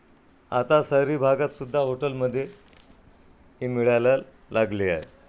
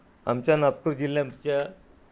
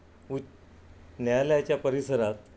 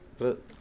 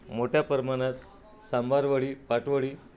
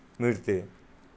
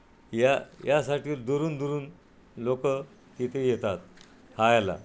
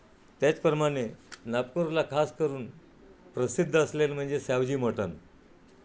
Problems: none marked